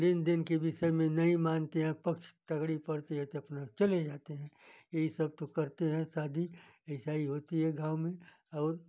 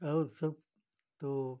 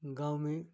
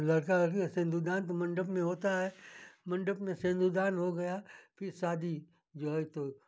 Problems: none marked